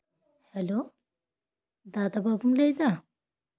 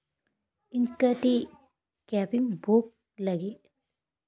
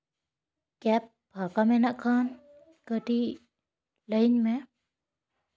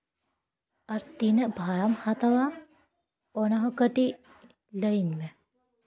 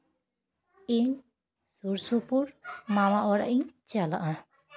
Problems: background conversations at intervals